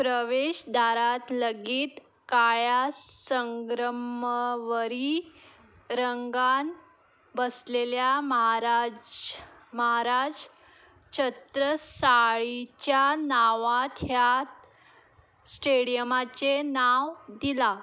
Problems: background sounds at intervals